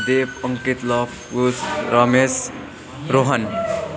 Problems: constant background noise, continuous background conversations